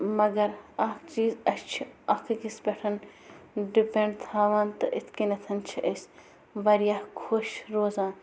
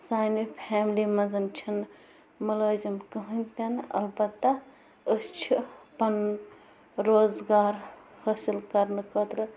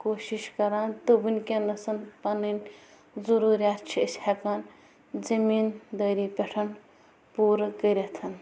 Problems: constant background noise